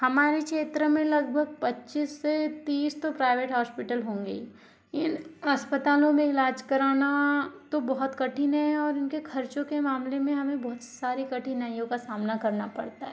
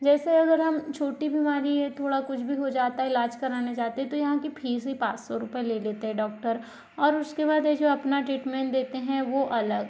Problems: none marked